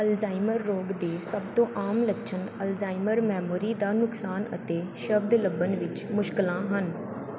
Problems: none marked